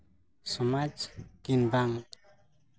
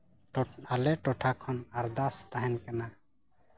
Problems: none marked